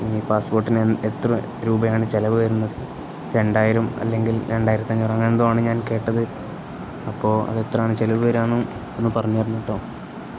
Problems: constant background noise